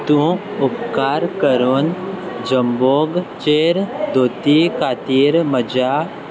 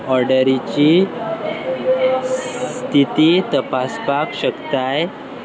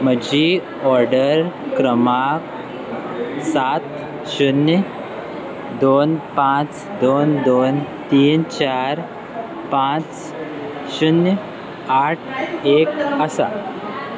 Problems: constant background noise